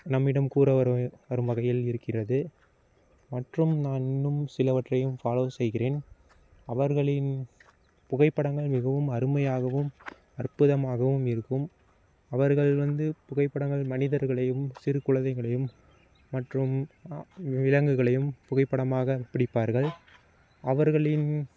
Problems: constant background noise